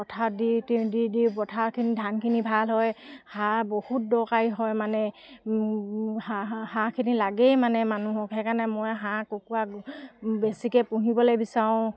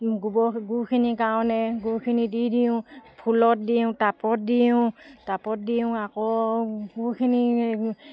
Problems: none marked